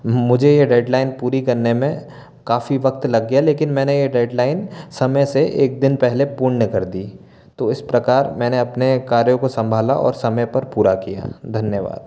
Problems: none marked